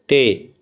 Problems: background conversations at intervals